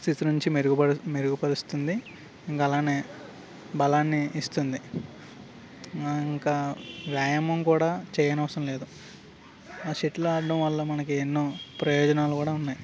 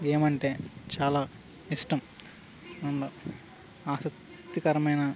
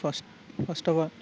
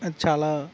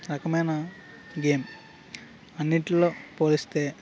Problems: background sounds at intervals